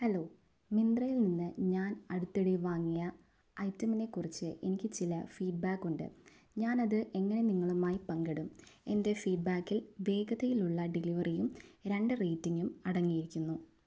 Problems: none marked